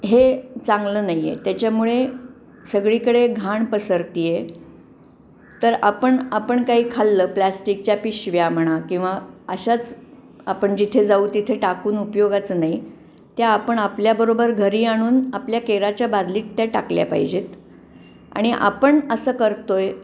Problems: constant background noise